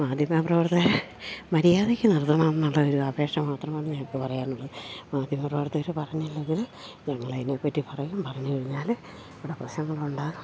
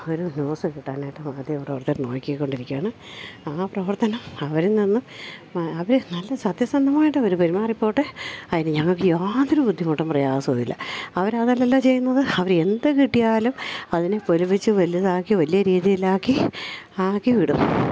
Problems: low volume